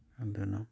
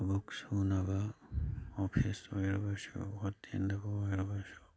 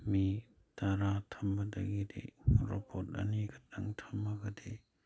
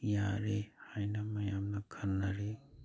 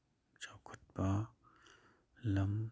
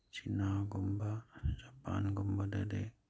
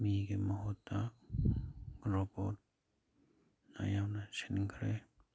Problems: none marked